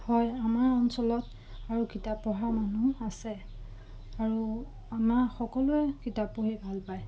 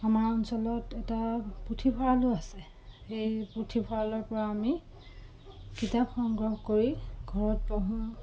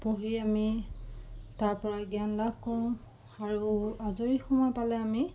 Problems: constant background noise